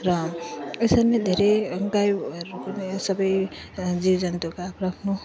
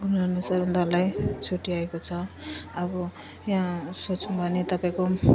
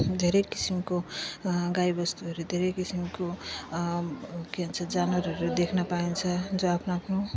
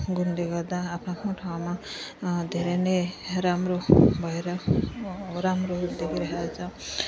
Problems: none marked